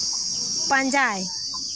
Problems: constant background noise